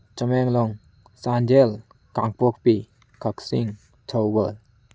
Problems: background sounds at intervals